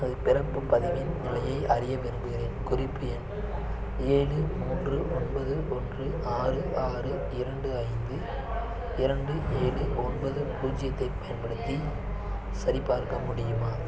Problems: constant background noise, continuous background conversations